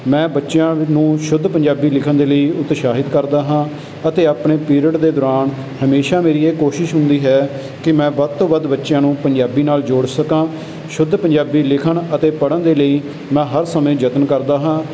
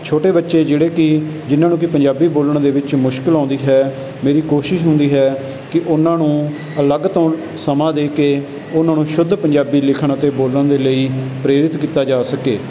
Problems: none marked